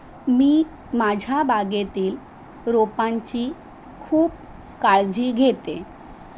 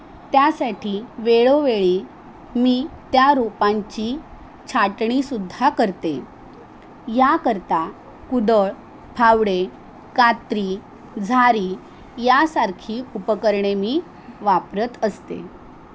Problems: none marked